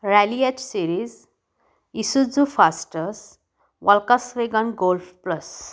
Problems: background sounds at intervals